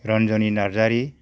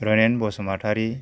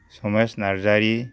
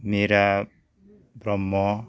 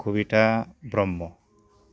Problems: low volume